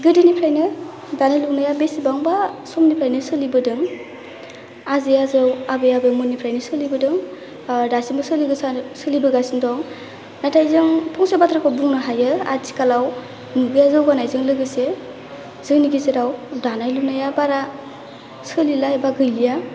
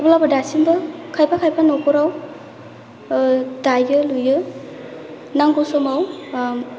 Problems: low volume